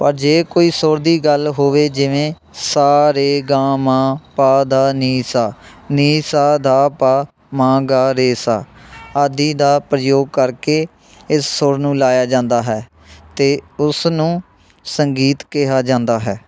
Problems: continuous background conversations